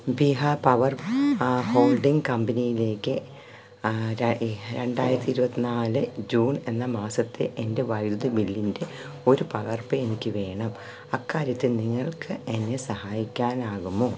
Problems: background sounds at intervals